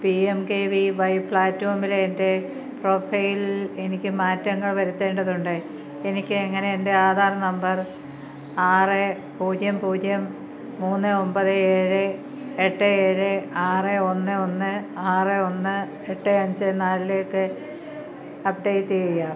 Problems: none marked